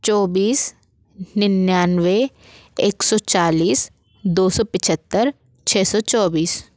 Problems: none marked